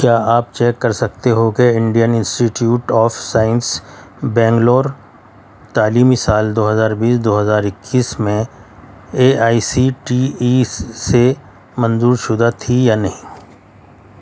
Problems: constant background noise